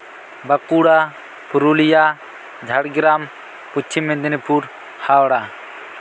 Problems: constant background noise